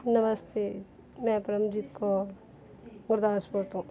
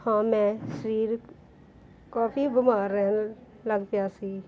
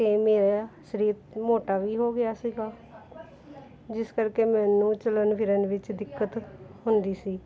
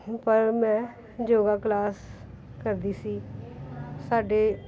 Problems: continuous background conversations